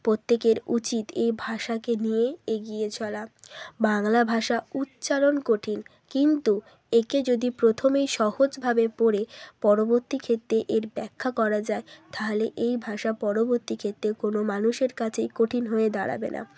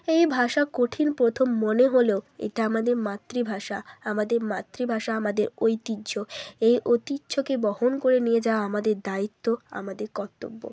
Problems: none marked